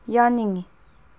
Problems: none marked